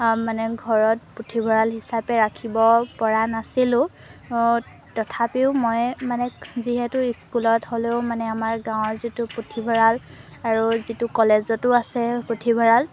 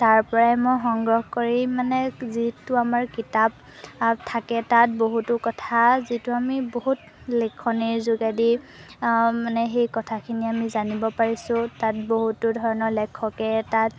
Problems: background sounds at intervals